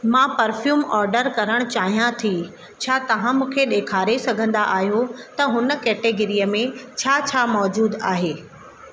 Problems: constant background noise, echo